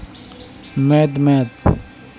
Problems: background sounds at intervals